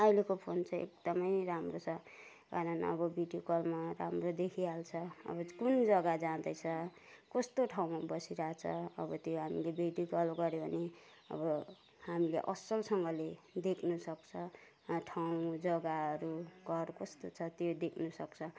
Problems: none marked